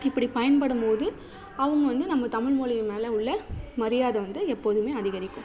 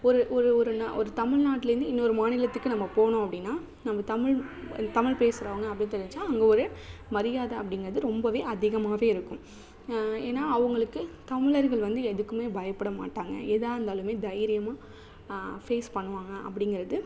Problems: none marked